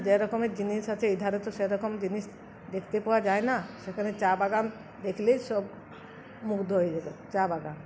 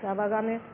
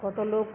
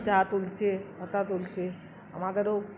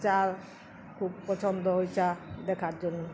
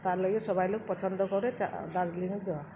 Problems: none marked